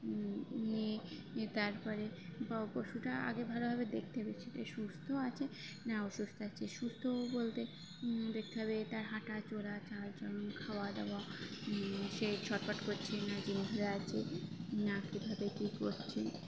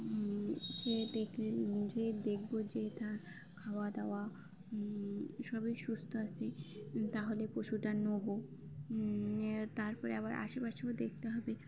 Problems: constant background noise, continuous background conversations